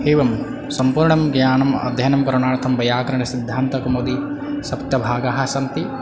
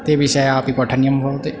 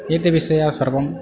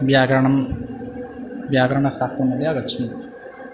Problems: background conversations at intervals